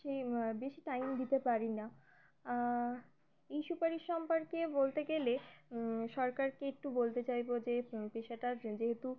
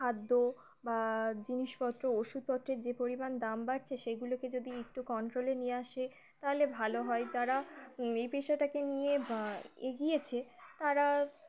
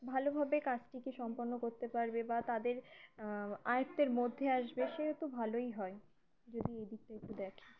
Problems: background sounds at intervals